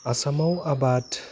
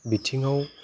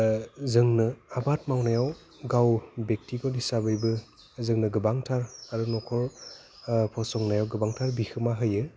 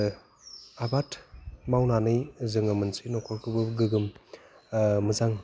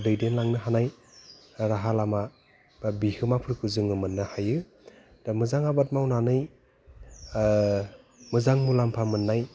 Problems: constant background noise